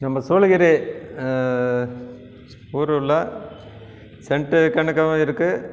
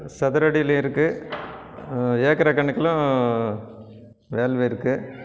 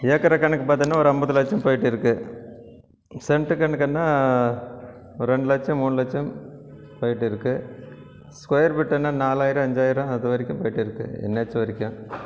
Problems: none marked